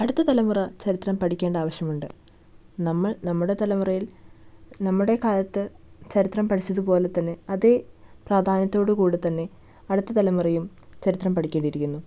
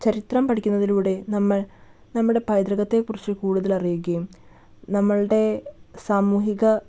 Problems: none marked